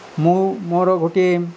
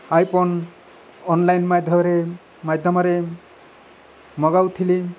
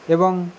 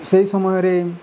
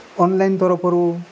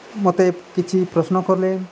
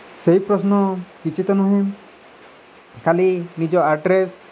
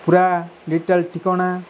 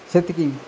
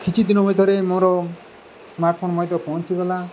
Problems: constant background noise